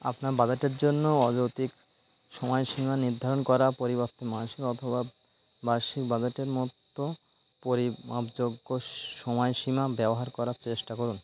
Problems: constant background noise